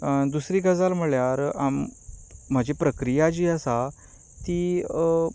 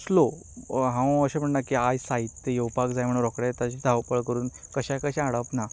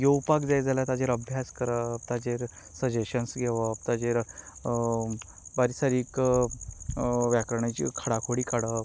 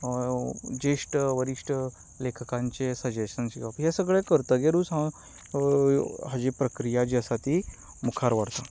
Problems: constant background noise